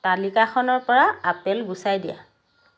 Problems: constant background noise